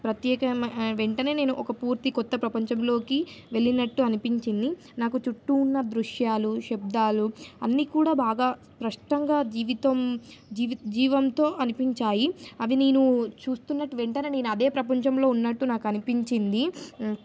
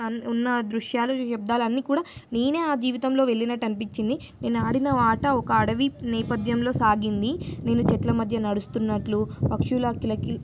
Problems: none marked